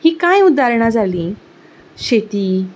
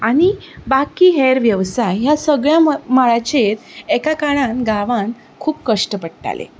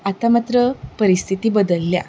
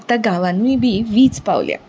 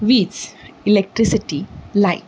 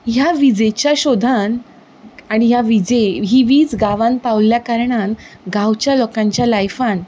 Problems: none marked